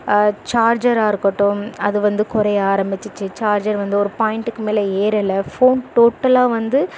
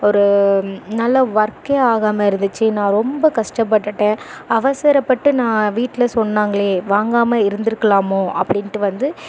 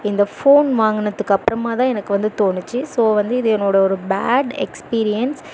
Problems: none marked